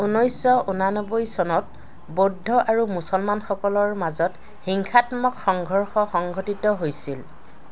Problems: constant background noise